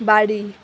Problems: constant background noise